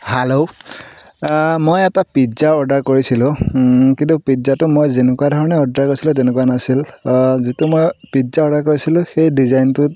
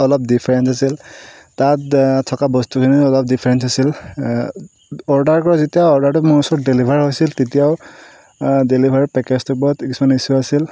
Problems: background sounds at intervals